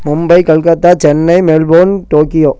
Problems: none marked